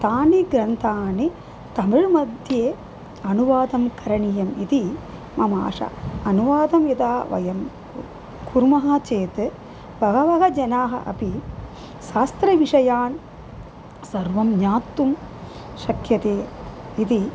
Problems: constant background noise